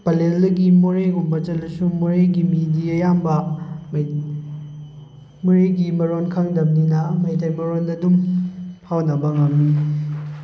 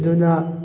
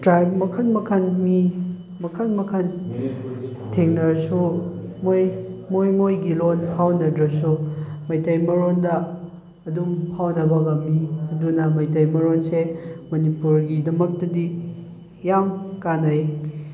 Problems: background conversations at intervals